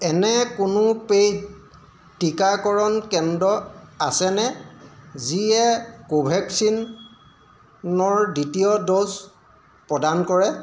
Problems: constant background noise